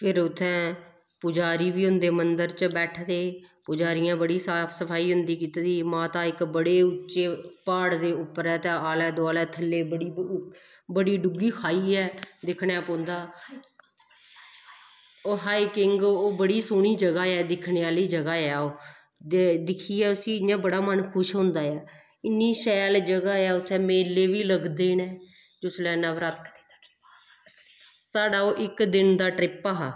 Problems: none marked